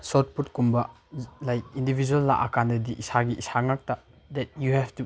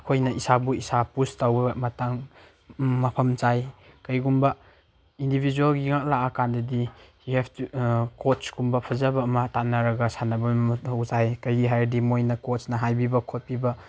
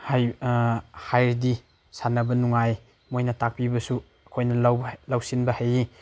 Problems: background sounds at intervals